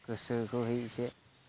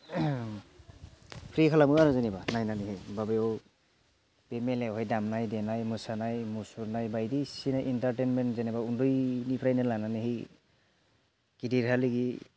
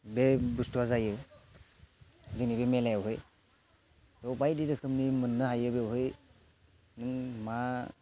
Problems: none marked